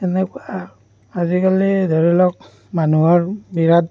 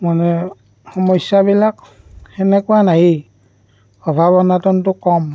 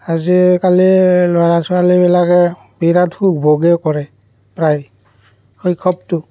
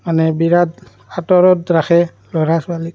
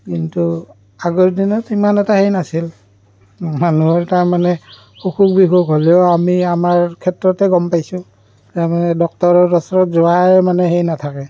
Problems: background sounds at intervals, background conversations at intervals